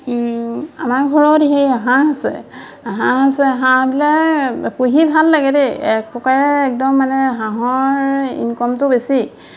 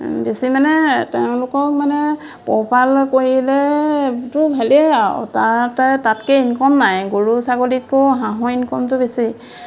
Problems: constant background noise, background conversations at intervals